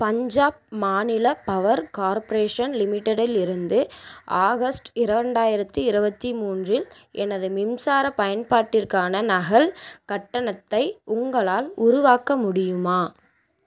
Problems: constant background noise